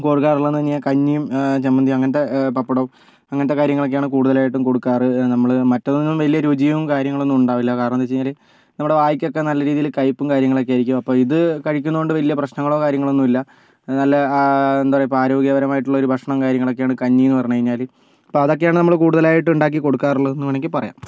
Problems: none marked